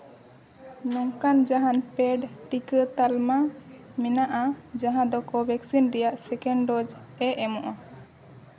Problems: constant background noise